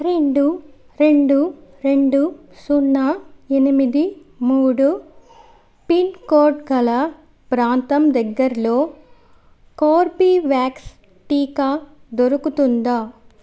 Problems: background sounds at intervals